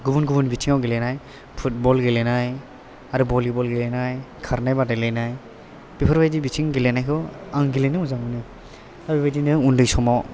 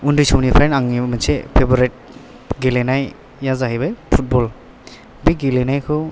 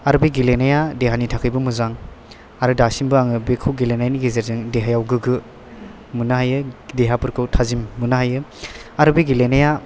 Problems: background sounds at intervals